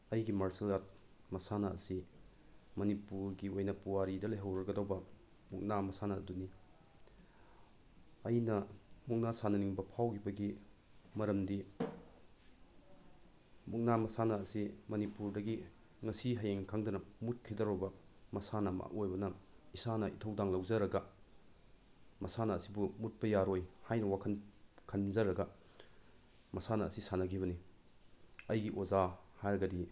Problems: none marked